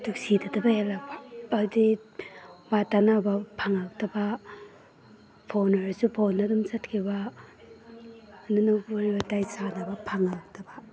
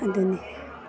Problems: none marked